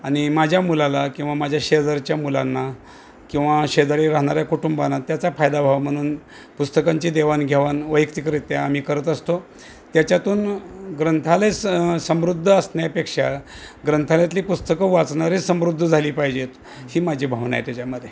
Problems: background sounds at intervals